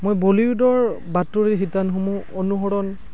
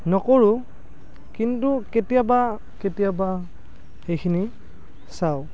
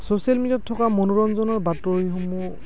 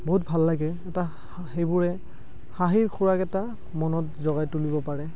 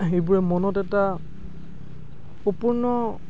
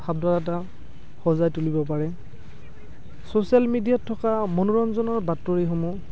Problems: background sounds at intervals